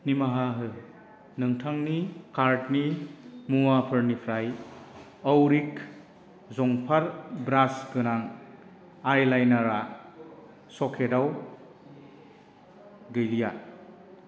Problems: constant background noise